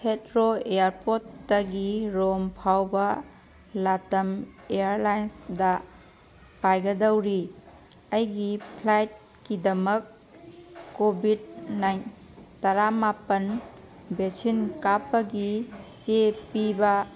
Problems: background sounds at intervals